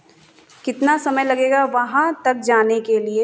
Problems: constant background noise